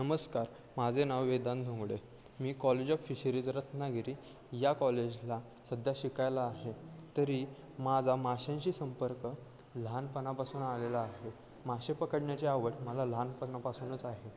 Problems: constant background noise, continuous background conversations